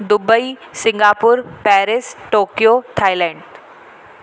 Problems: constant background noise, echo